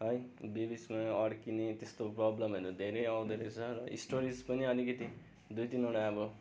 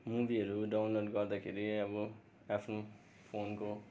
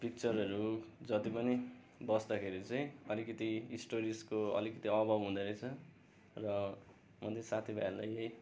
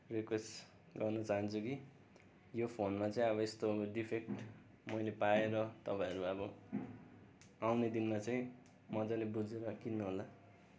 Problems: none marked